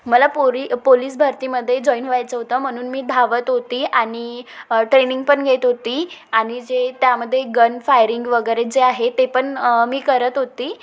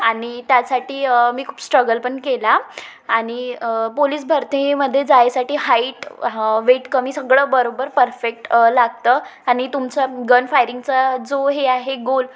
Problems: background sounds at intervals